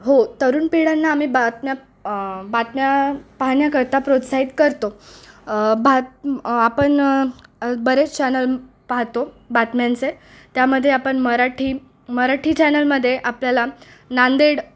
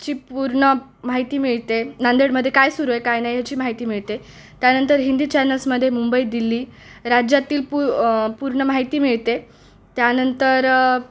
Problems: none marked